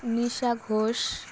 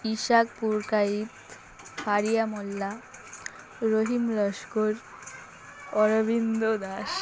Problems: constant background noise, background conversations at intervals